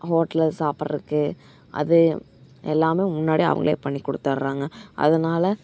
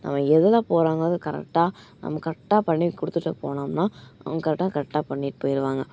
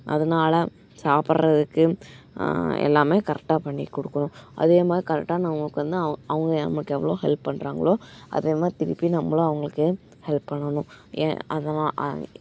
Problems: background sounds at intervals